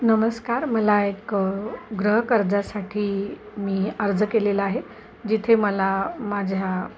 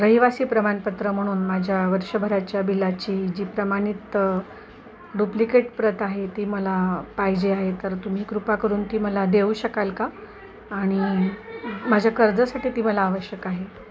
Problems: constant background noise, continuous background conversations